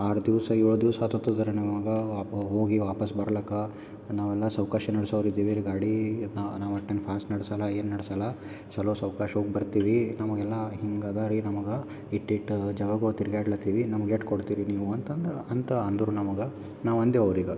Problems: none marked